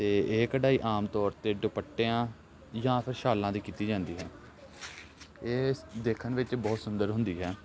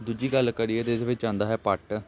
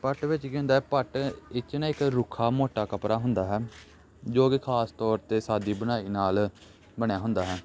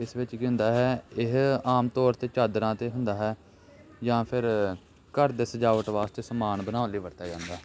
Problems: background sounds at intervals